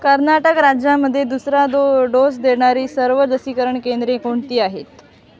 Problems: constant background noise, background conversations at intervals